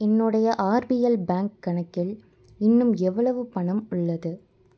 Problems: none marked